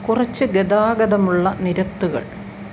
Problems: constant background noise